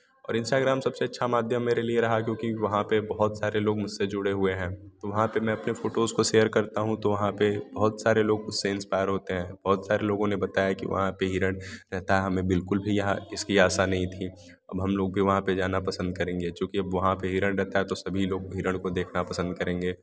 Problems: background sounds at intervals